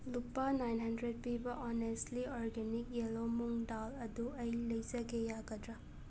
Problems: background sounds at intervals